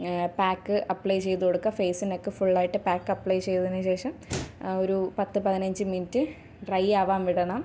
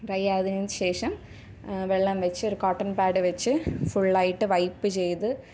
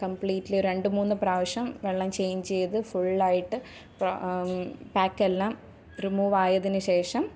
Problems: background sounds at intervals